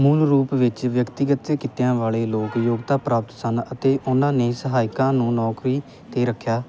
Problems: background sounds at intervals